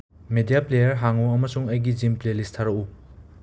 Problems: none marked